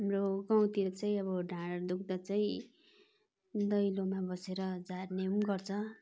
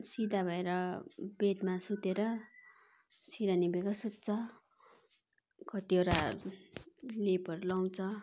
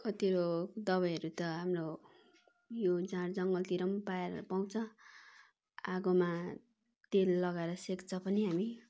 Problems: constant background noise, continuous background conversations